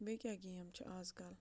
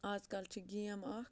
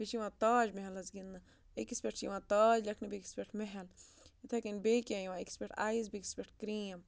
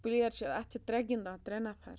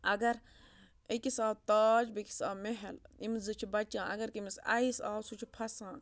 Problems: background sounds at intervals